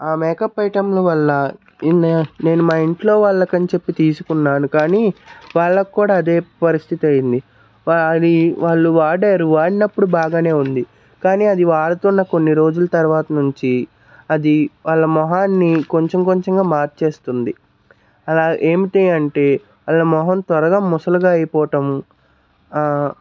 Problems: none marked